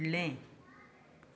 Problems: background sounds at intervals